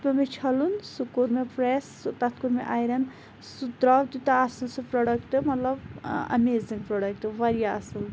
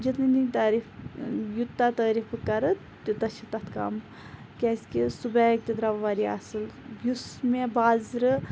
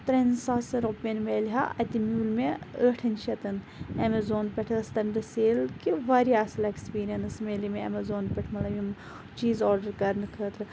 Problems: constant background noise